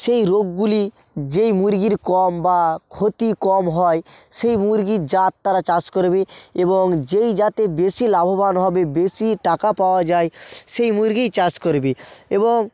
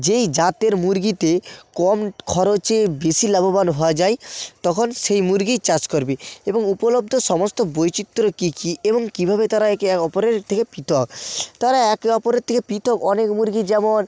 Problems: constant background noise